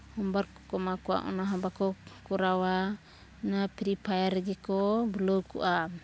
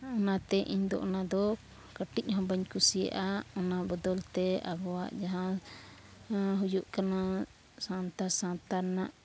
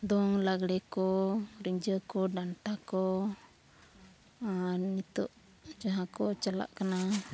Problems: none marked